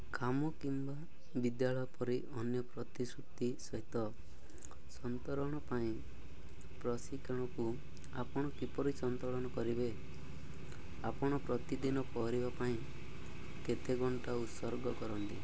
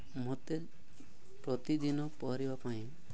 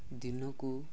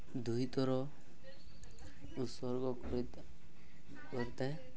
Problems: background sounds at intervals